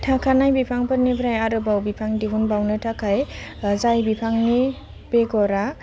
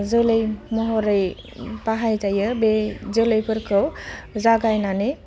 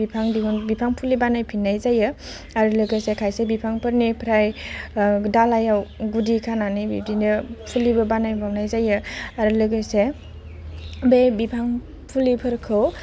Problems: none marked